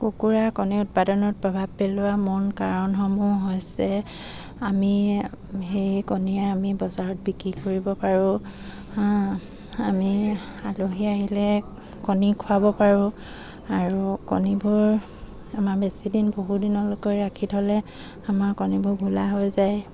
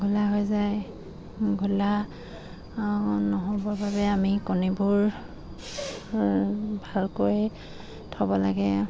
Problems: none marked